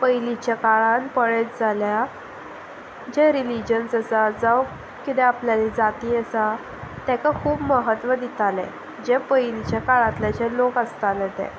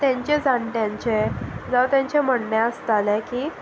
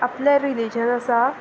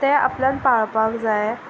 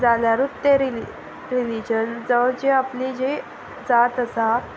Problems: constant background noise